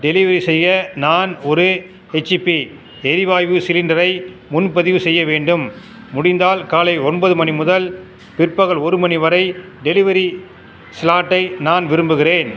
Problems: constant background noise